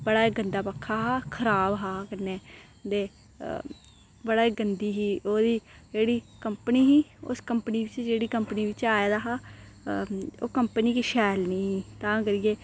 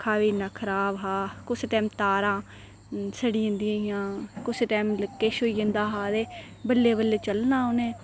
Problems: none marked